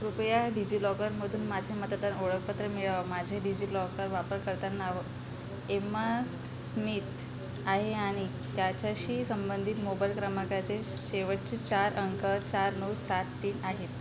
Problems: constant background noise